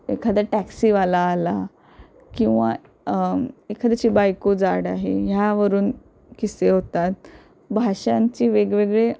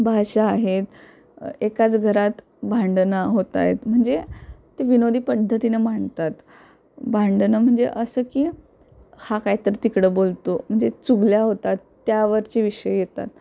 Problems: constant background noise